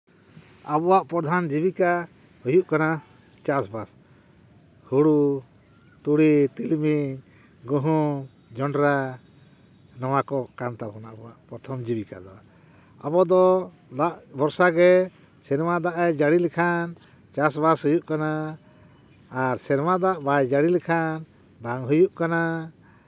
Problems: none marked